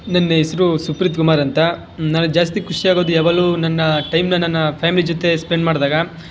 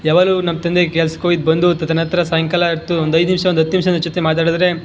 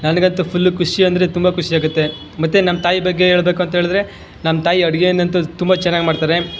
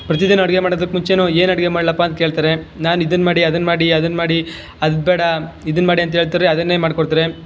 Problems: none marked